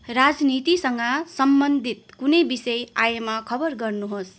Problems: constant background noise